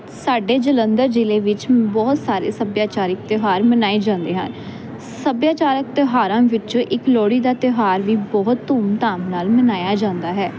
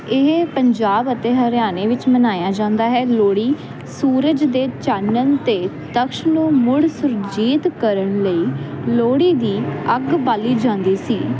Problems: constant background noise